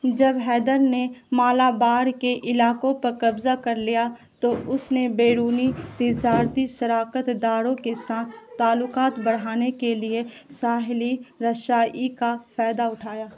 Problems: constant background noise